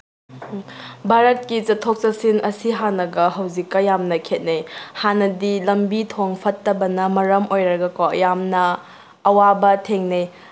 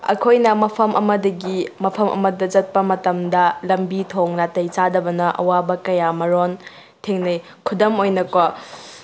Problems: background sounds at intervals